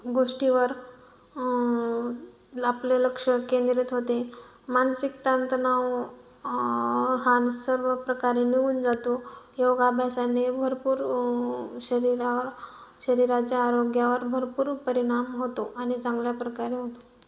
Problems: background sounds at intervals